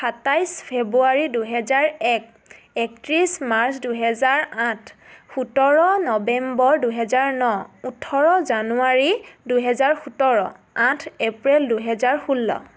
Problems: none marked